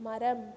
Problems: low volume